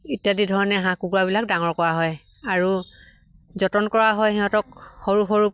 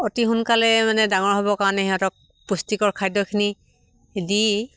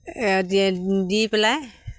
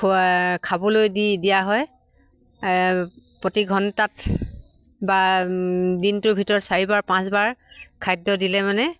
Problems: constant background noise